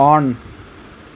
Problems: none marked